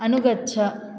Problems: none marked